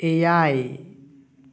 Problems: echo